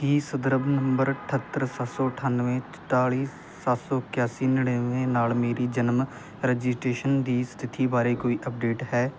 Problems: constant background noise